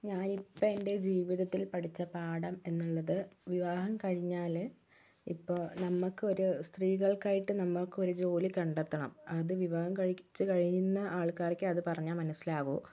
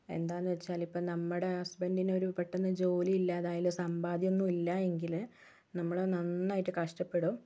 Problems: none marked